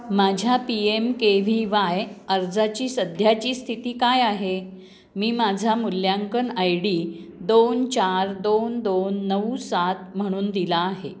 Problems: background sounds at intervals, background conversations at intervals